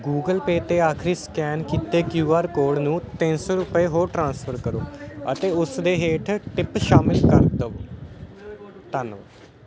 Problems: constant background noise